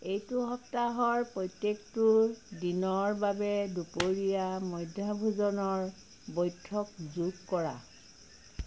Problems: none marked